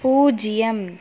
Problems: constant background noise